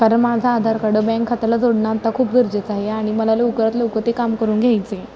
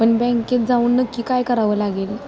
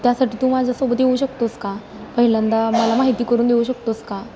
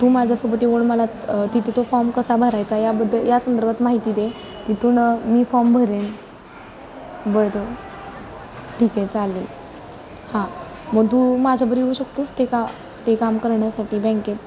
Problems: background conversations at intervals